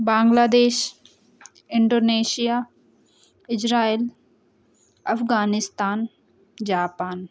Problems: background sounds at intervals